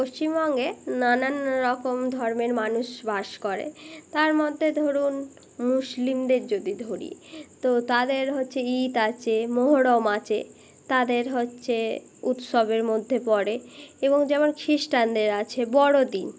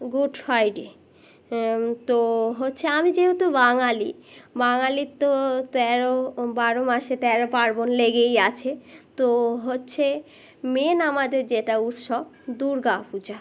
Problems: none marked